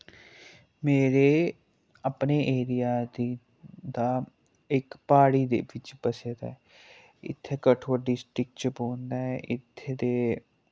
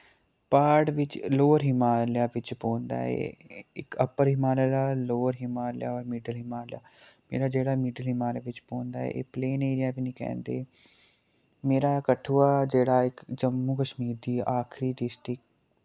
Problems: none marked